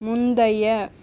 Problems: none marked